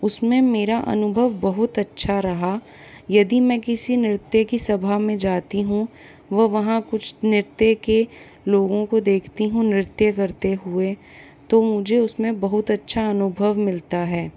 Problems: constant background noise